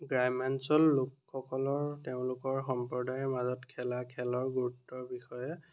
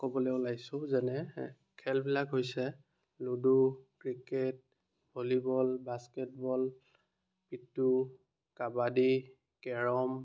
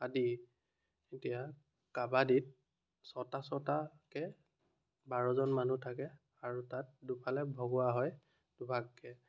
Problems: continuous background conversations